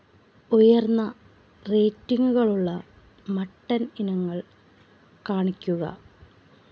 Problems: none marked